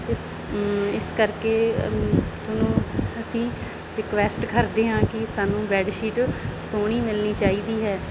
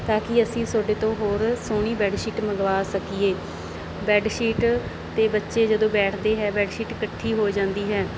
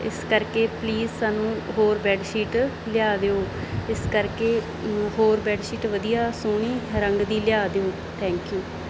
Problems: background sounds at intervals